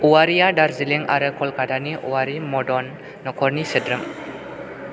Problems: none marked